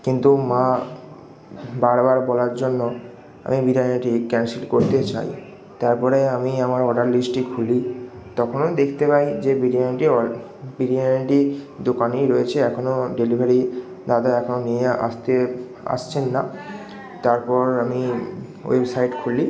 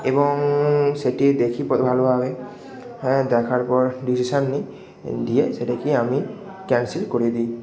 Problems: echo